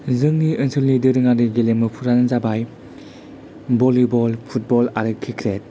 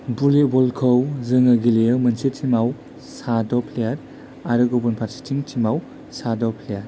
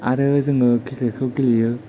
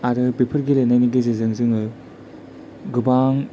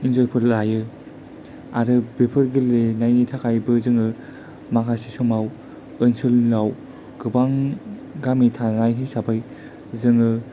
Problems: low volume